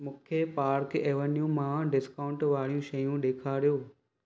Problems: none marked